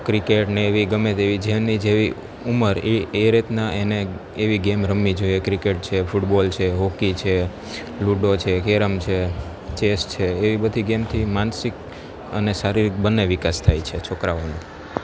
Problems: constant background noise